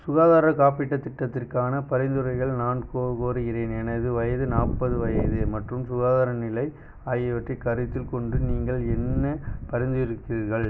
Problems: none marked